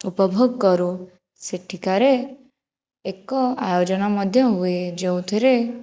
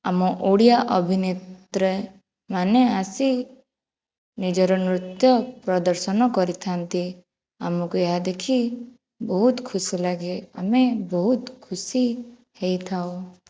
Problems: none marked